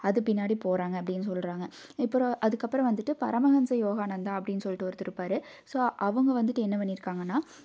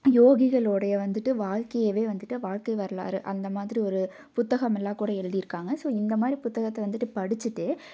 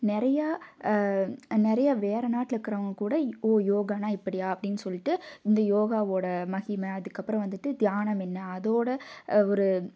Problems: none marked